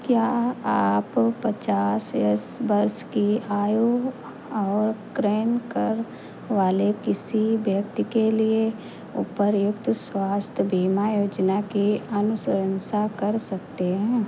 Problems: constant background noise